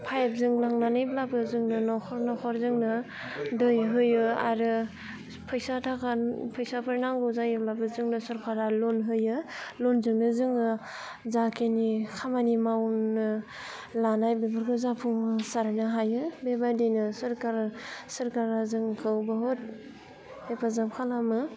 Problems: constant background noise